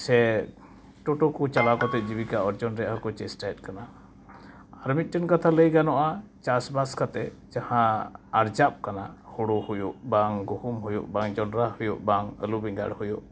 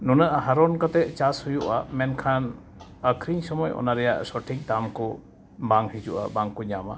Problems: background sounds at intervals